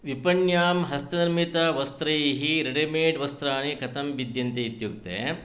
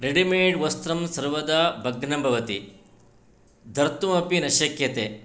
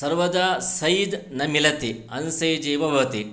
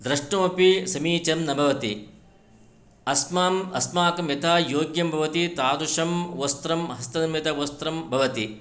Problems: none marked